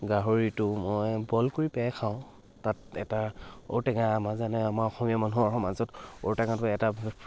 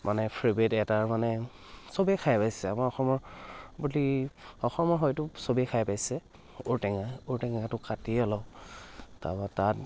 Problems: none marked